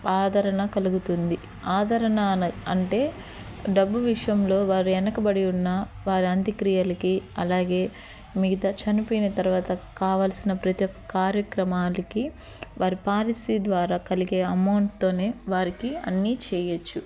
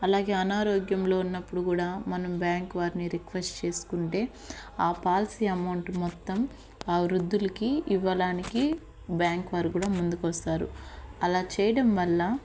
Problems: background sounds at intervals